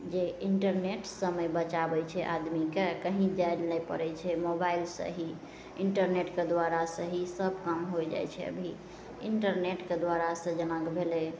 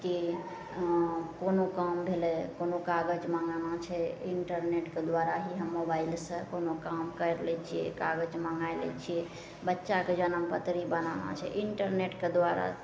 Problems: none marked